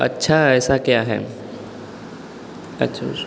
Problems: constant background noise, background conversations at intervals